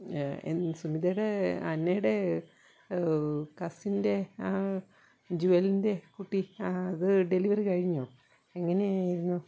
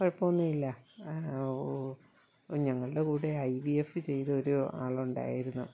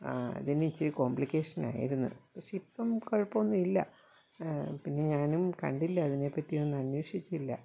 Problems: low volume